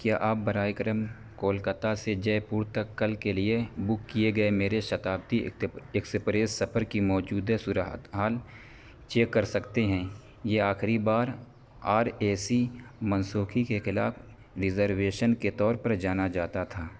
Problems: constant background noise